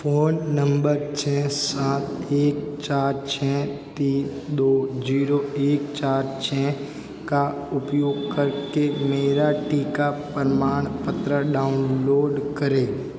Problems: constant background noise